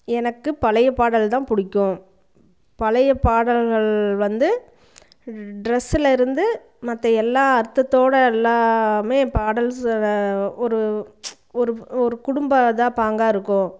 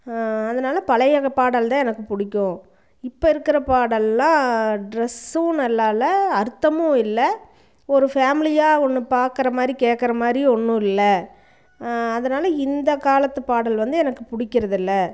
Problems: background conversations at intervals